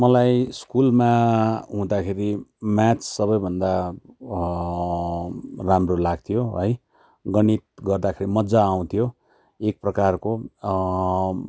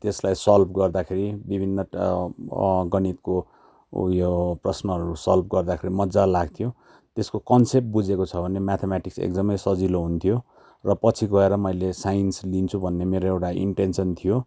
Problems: constant background noise